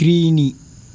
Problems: constant background noise